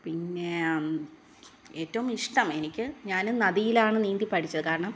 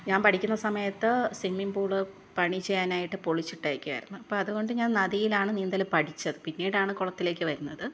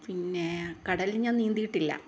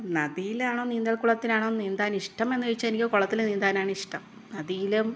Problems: none marked